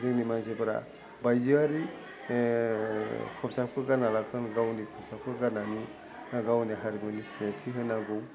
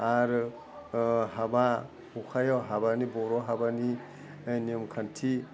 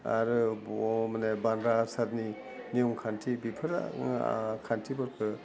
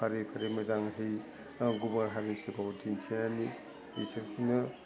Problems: low volume